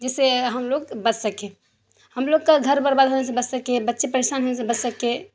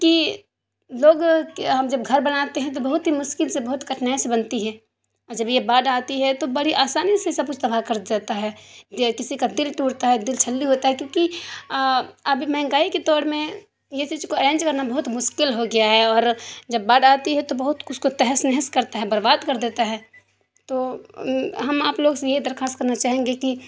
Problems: constant background noise